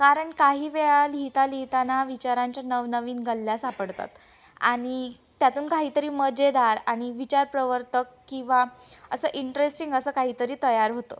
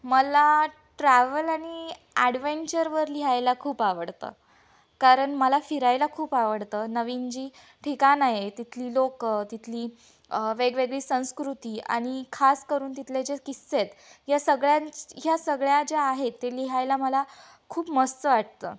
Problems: background sounds at intervals, background conversations at intervals